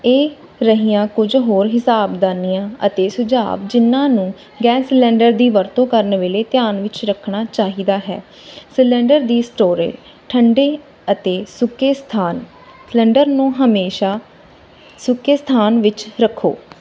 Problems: none marked